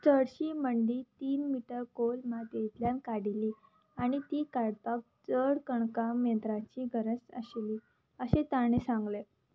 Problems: none marked